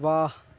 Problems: none marked